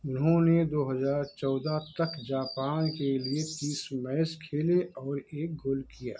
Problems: background sounds at intervals